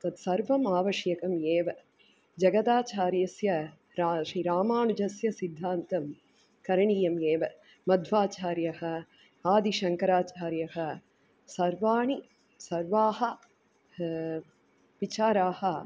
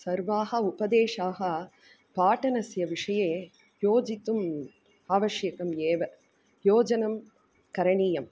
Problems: none marked